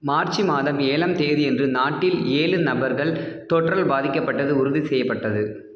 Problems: low volume